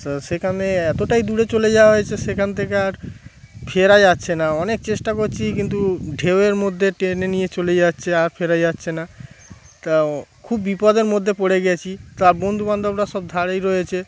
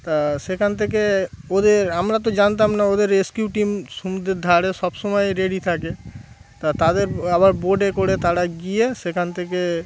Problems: constant background noise